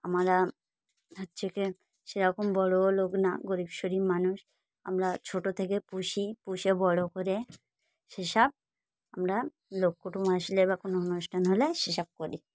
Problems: background sounds at intervals